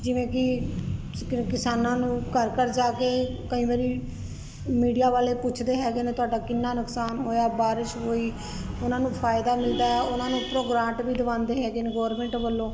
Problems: constant background noise